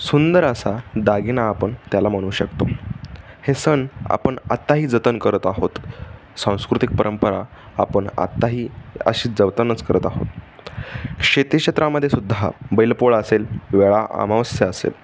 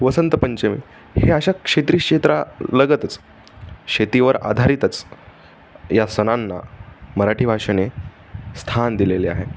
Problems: constant background noise